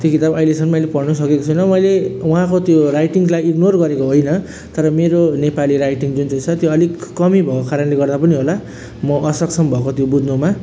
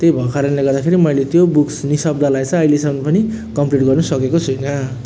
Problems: none marked